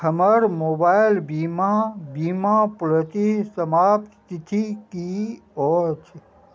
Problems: none marked